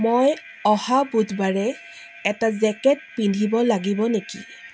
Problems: constant background noise